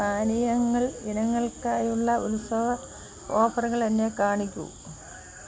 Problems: none marked